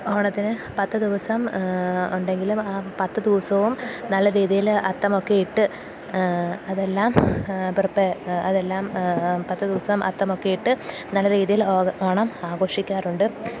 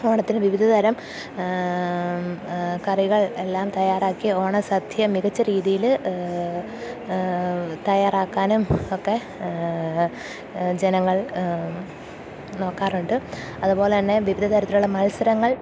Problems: low volume